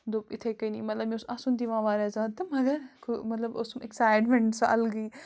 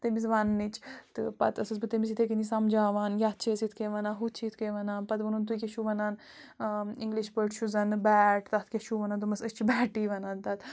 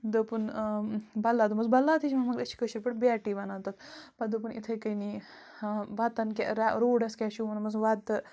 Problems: constant background noise